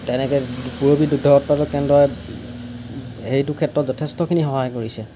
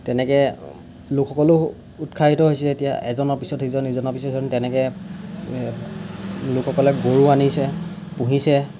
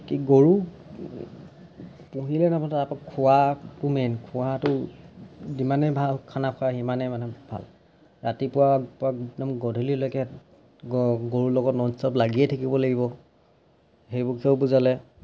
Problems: background sounds at intervals